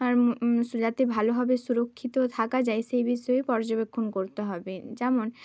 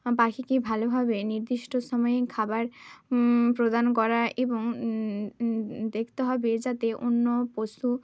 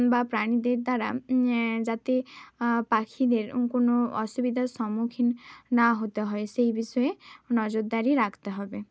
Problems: constant background noise